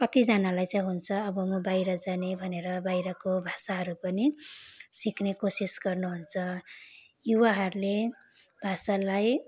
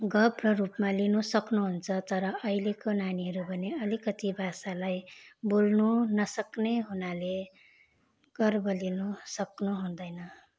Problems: constant background noise